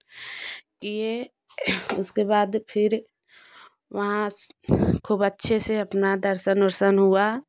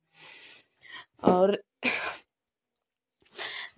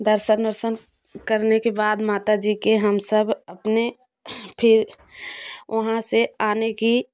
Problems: background sounds at intervals